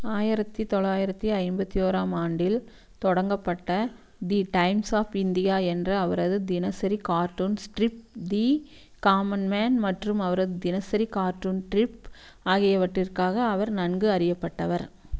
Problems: none marked